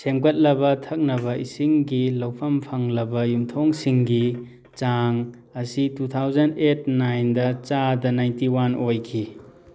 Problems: background sounds at intervals